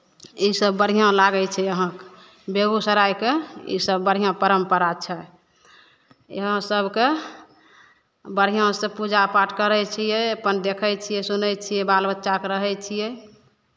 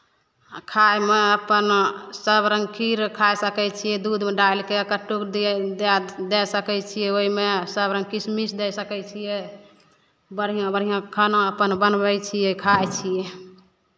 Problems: none marked